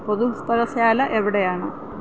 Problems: constant background noise